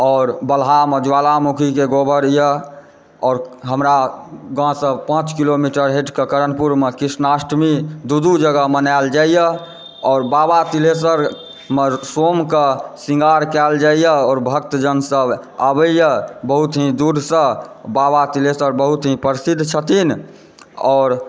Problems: background sounds at intervals